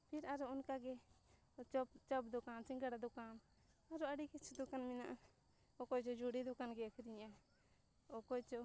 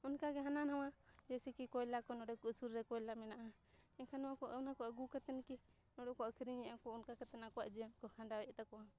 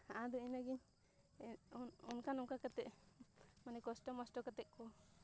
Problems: low volume